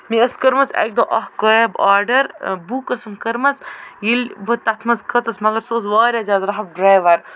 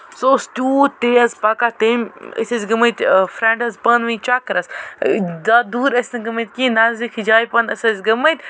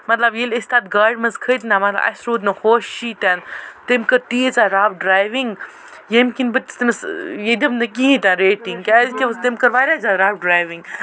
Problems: none marked